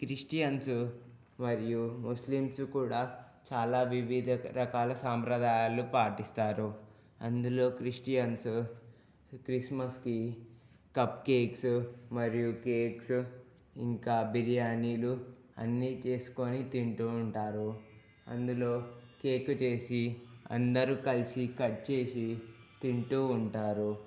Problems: low volume